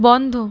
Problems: none marked